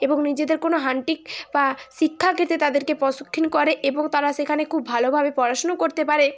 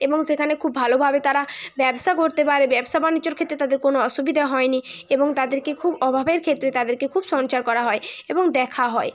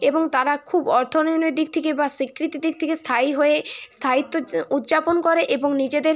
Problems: constant background noise, continuous background conversations